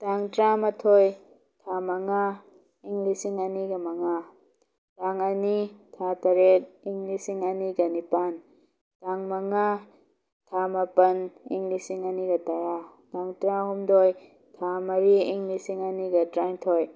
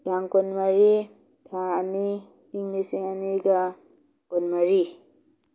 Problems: none marked